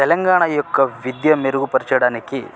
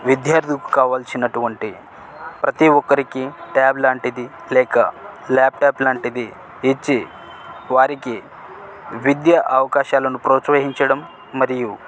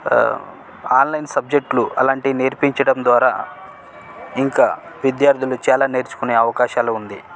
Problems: constant background noise